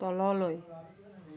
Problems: continuous background conversations